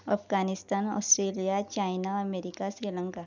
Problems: low volume